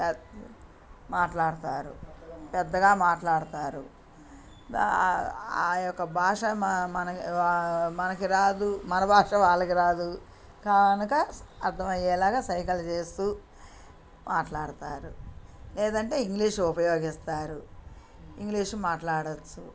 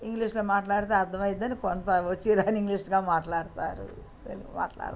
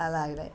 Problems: background sounds at intervals, background conversations at intervals